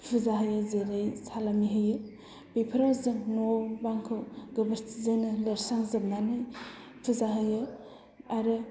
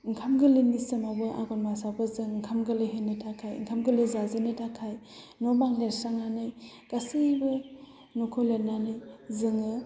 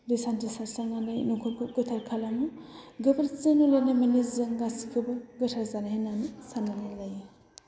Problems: low volume